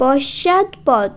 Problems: constant background noise